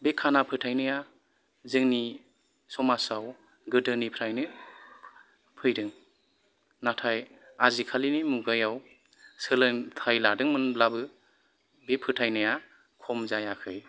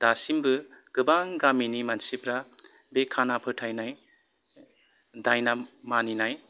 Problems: background sounds at intervals, background conversations at intervals